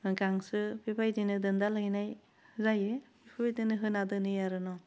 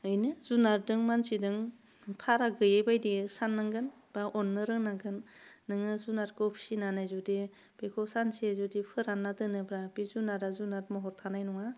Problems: low volume